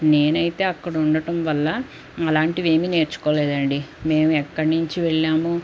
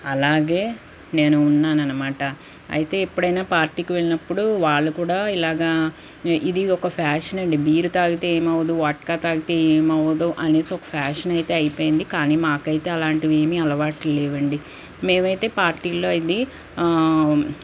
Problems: none marked